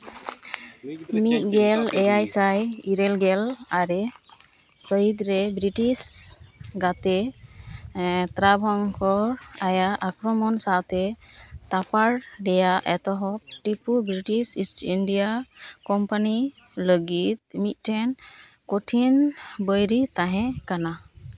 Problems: constant background noise, background conversations at intervals